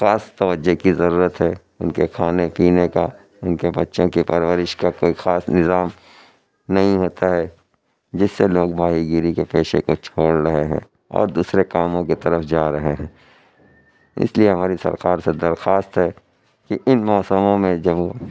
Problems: background sounds at intervals